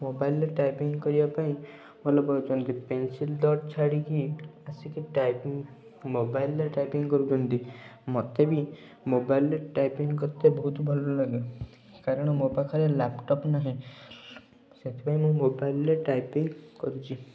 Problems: low volume